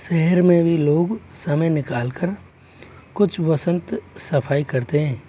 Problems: constant background noise